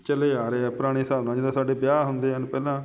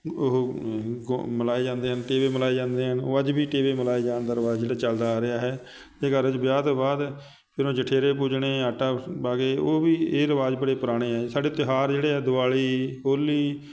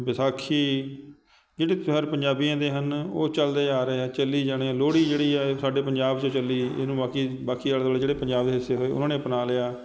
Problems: none marked